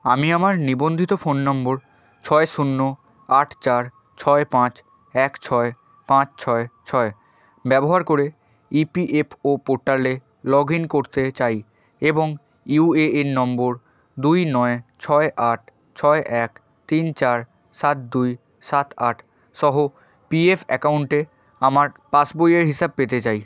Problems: none marked